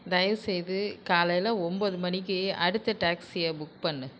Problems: none marked